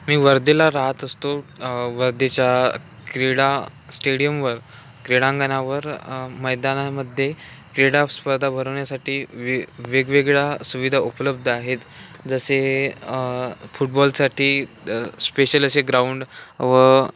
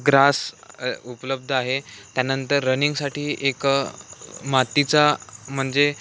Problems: none marked